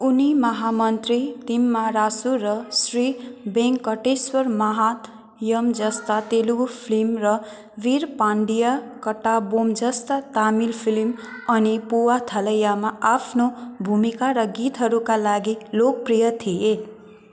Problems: continuous background conversations